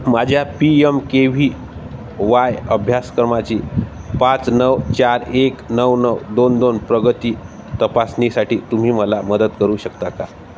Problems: constant background noise